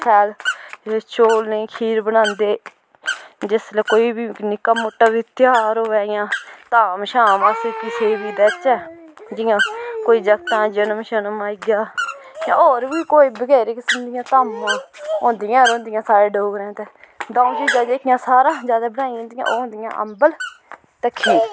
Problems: background sounds at intervals